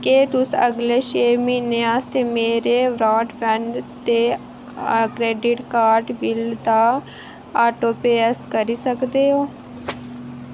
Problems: none marked